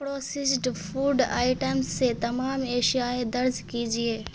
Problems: constant background noise